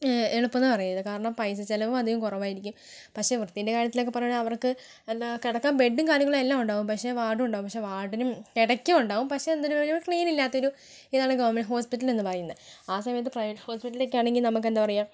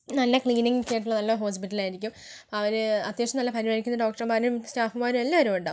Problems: low volume